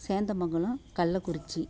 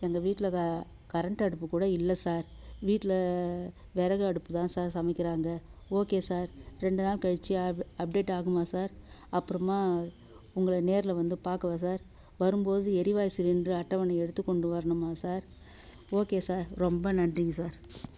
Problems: low volume